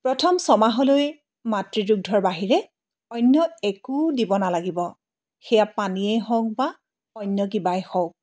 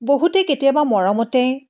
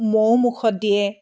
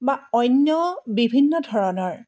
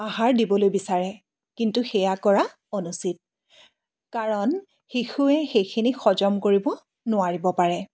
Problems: none marked